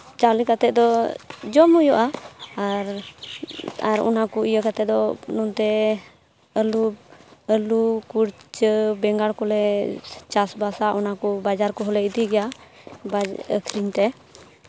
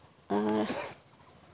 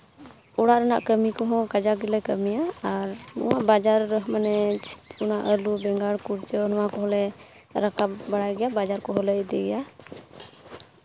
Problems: constant background noise